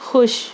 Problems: background sounds at intervals